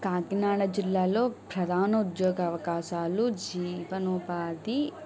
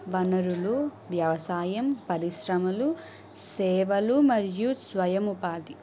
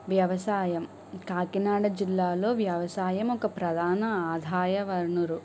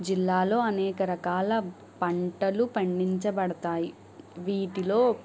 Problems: background sounds at intervals